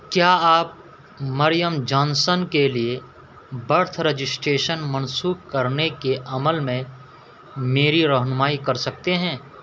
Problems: constant background noise